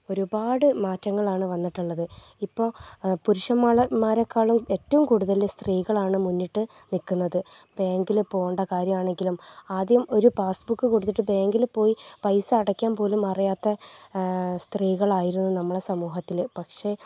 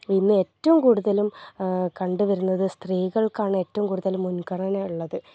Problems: low volume